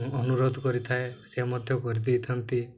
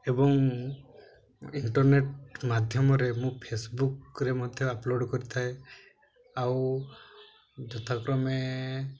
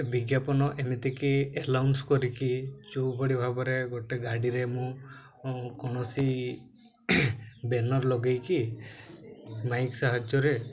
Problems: background sounds at intervals, low volume